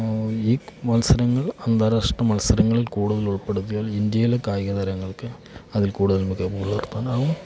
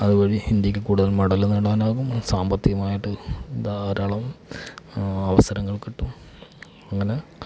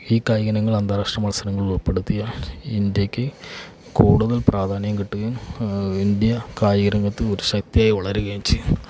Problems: none marked